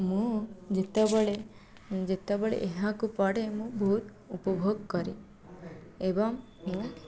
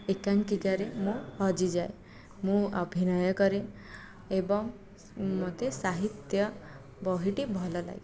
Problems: background conversations at intervals, low volume